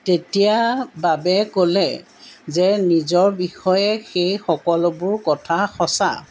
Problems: background sounds at intervals